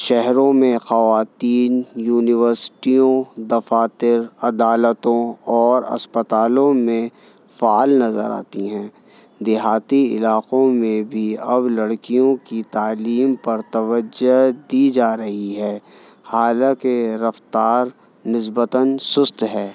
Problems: none marked